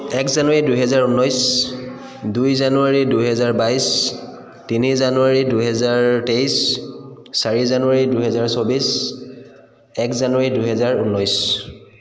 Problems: continuous background conversations